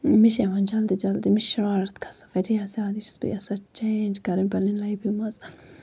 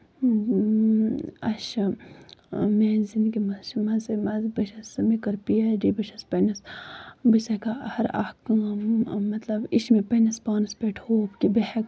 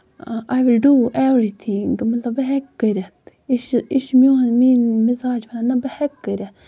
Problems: constant background noise